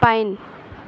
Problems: constant background noise